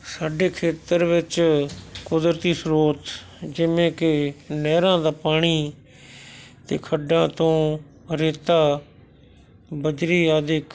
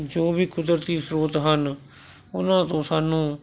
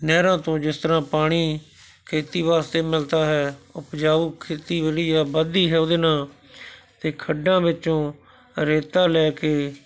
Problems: background sounds at intervals